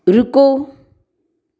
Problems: background sounds at intervals